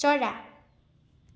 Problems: none marked